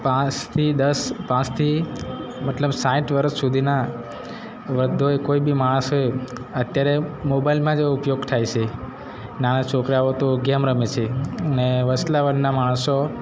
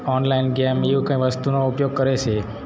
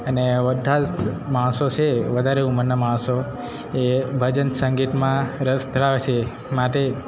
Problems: none marked